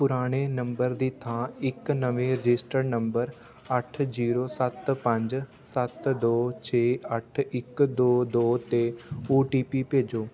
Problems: constant background noise